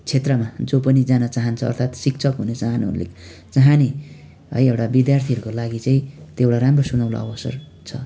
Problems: constant background noise